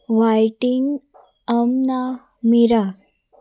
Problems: none marked